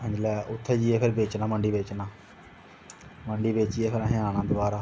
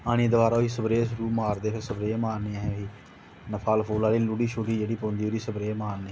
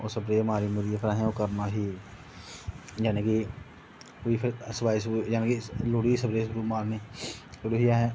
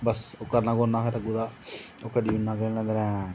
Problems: constant background noise